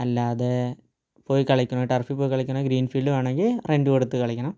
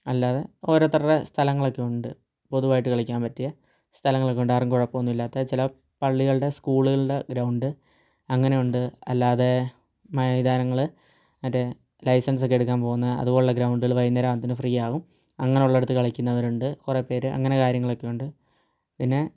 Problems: low volume